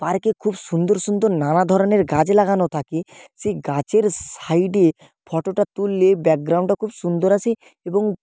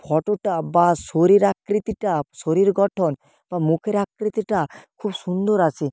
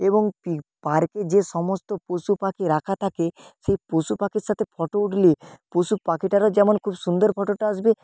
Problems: background sounds at intervals